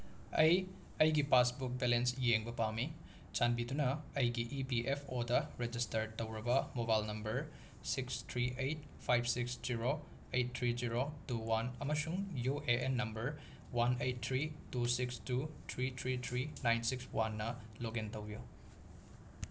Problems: background sounds at intervals